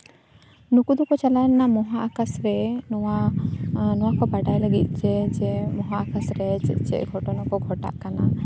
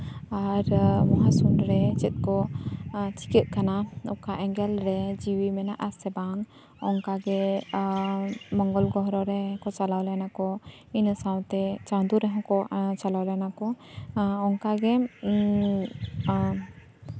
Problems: constant background noise